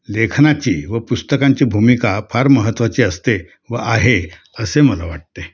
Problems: constant background noise, background conversations at intervals